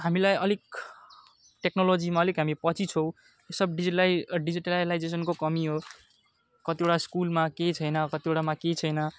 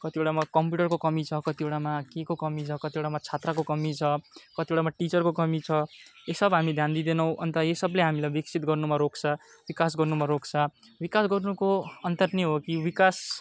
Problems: none marked